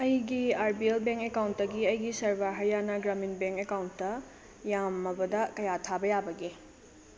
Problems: constant background noise, low volume